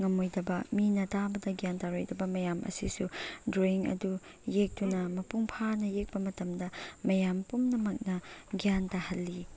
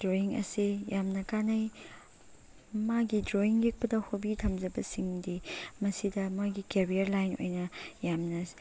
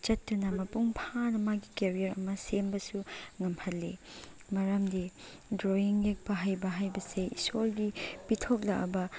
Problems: background sounds at intervals